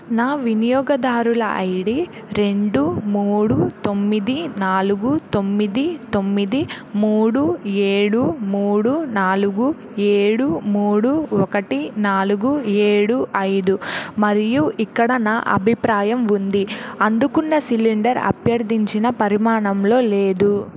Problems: none marked